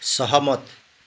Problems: none marked